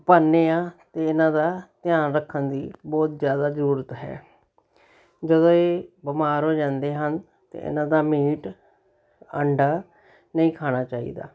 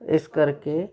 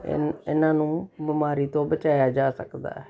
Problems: none marked